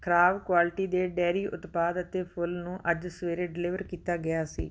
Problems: none marked